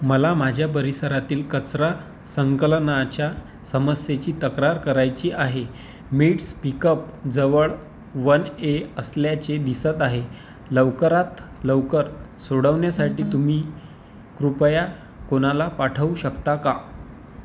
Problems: constant background noise